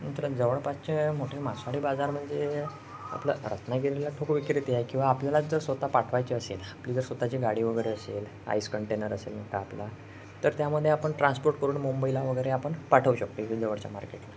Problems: background sounds at intervals